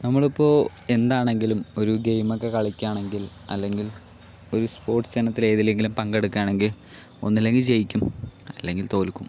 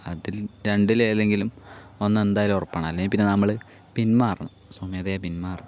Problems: none marked